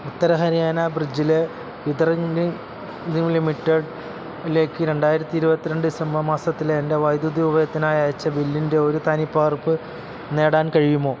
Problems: constant background noise